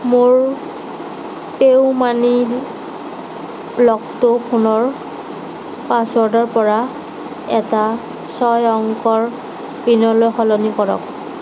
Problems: none marked